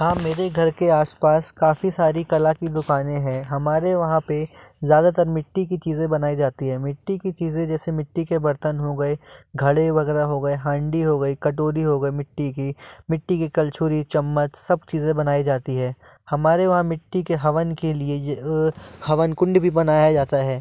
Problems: none marked